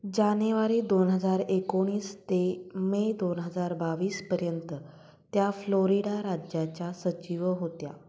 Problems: constant background noise, echo